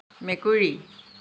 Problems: constant background noise